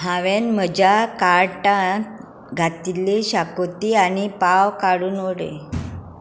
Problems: background sounds at intervals